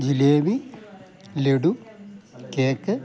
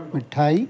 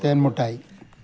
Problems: background sounds at intervals